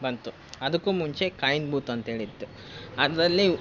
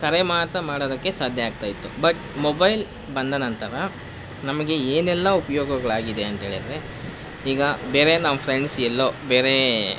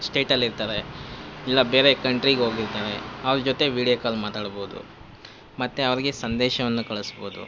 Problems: constant background noise